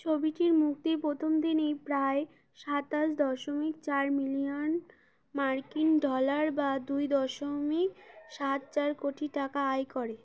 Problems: background sounds at intervals